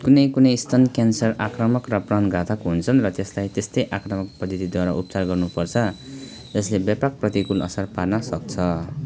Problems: none marked